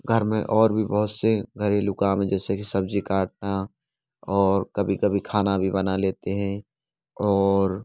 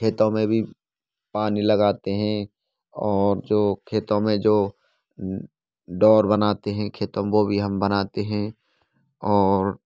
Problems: constant background noise